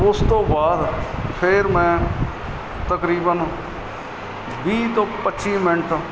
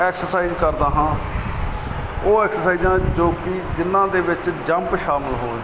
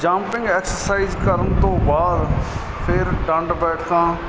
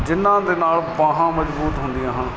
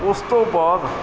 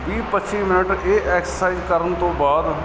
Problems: constant background noise